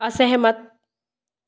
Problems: none marked